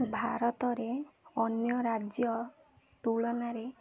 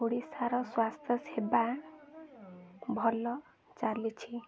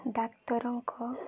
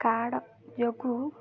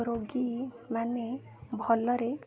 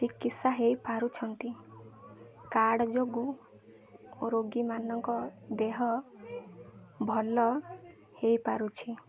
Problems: constant background noise, continuous background conversations